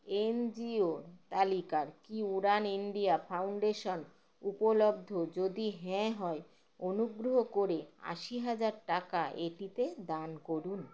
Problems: none marked